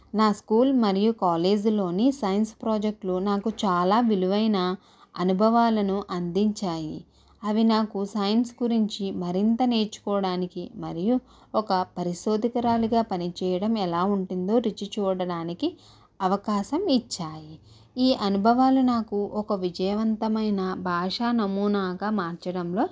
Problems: background sounds at intervals